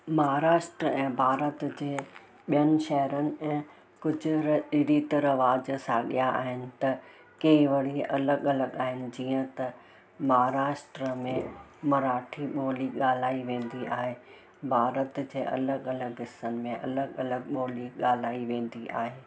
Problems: constant background noise